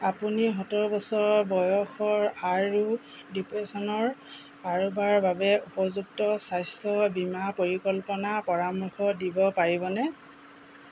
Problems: constant background noise